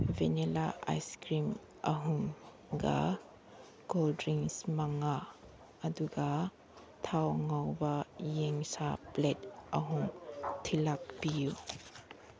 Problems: background sounds at intervals